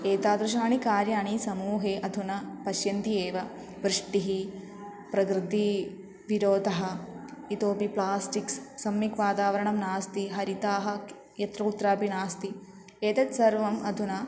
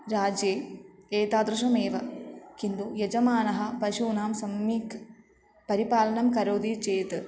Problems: continuous background conversations